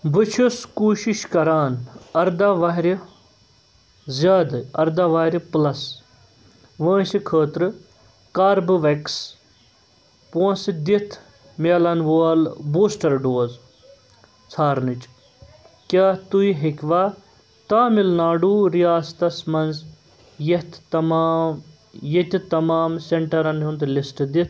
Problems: constant background noise